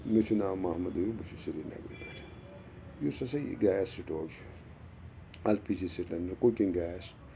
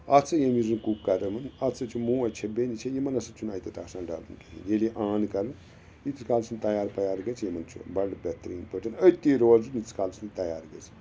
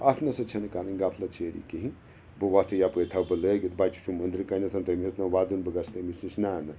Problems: constant background noise